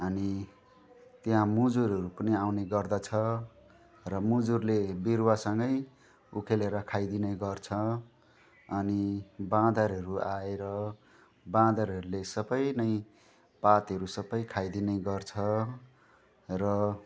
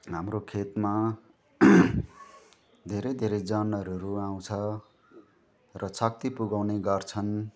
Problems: constant background noise